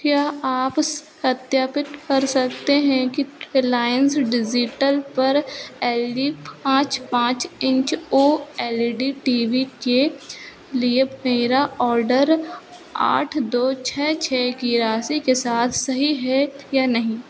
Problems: constant background noise